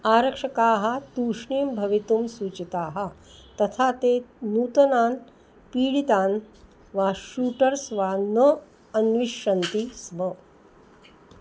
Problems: background sounds at intervals